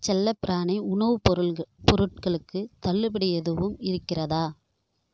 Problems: none marked